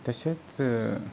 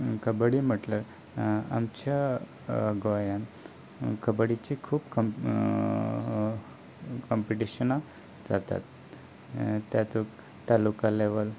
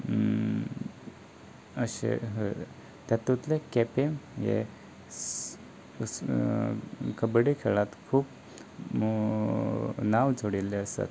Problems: none marked